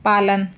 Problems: constant background noise